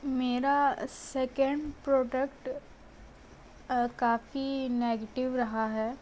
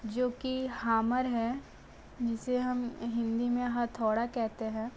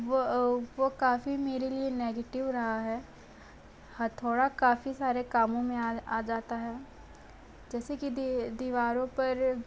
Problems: constant background noise